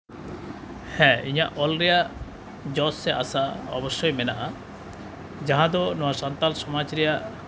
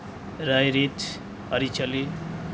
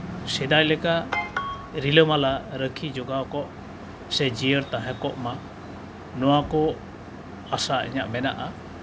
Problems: background sounds at intervals